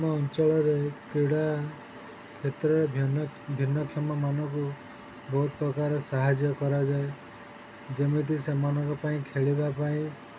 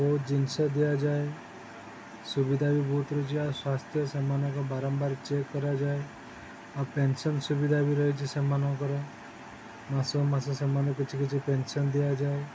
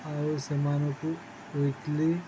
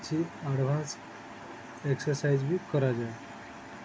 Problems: constant background noise